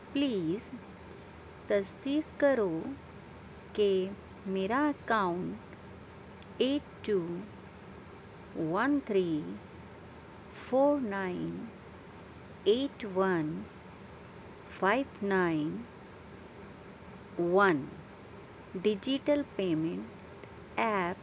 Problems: none marked